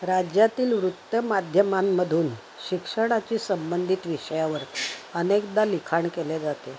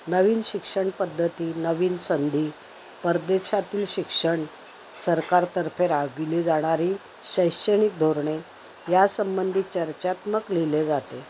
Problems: constant background noise